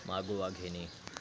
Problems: none marked